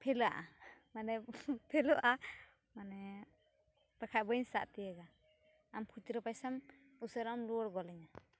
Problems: background sounds at intervals